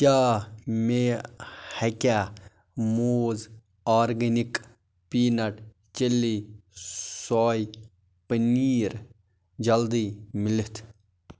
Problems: constant background noise